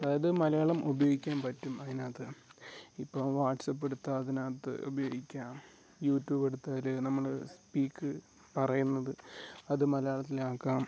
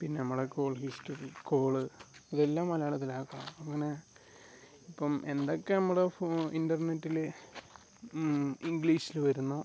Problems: background sounds at intervals, low volume